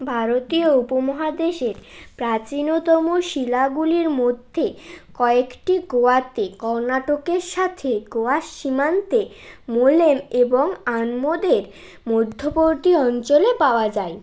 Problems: constant background noise